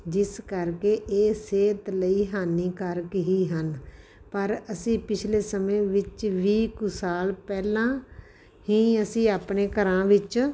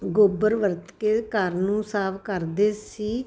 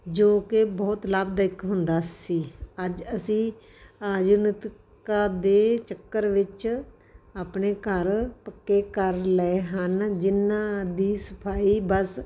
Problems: constant background noise